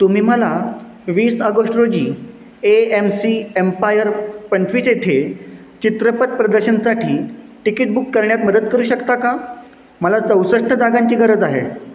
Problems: constant background noise